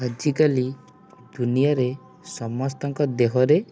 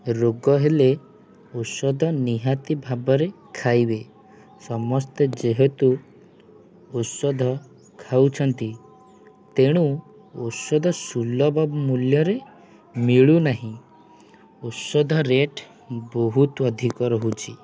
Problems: none marked